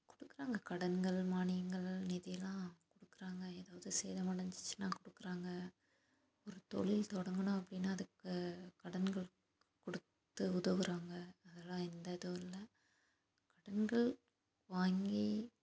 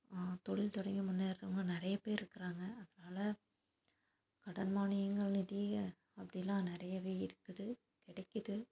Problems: low volume